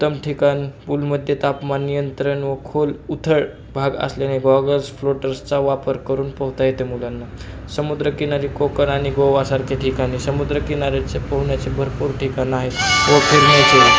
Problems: constant background noise, continuous background conversations